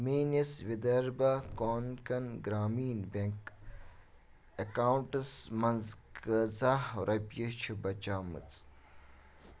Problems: background sounds at intervals, background conversations at intervals